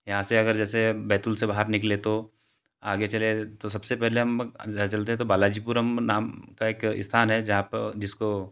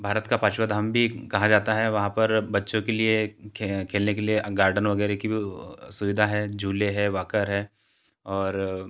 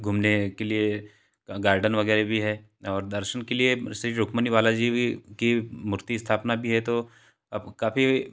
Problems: none marked